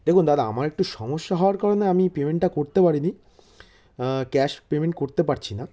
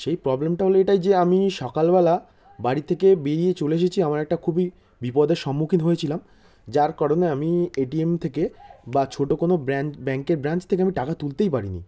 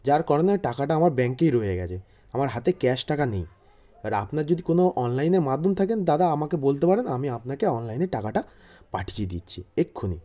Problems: constant background noise